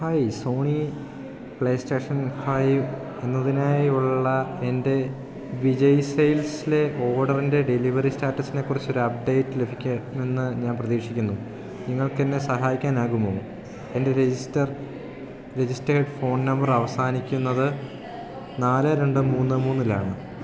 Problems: background sounds at intervals